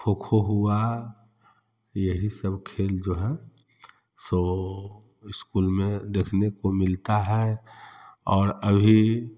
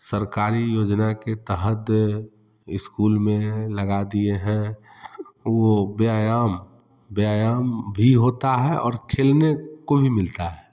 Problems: constant background noise